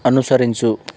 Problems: constant background noise